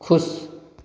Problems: background conversations at intervals, echo